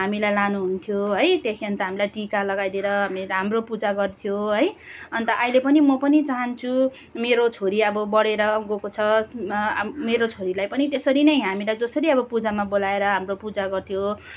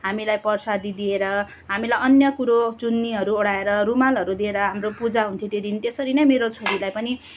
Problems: none marked